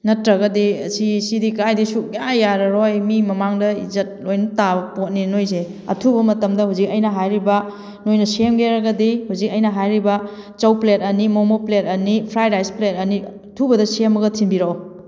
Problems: none marked